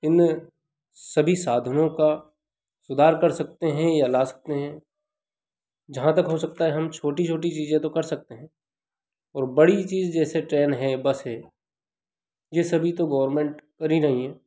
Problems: constant background noise